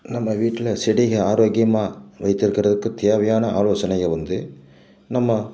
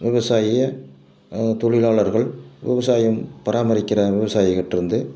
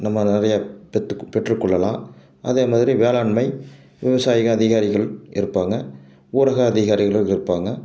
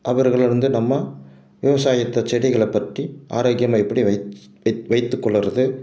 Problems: none marked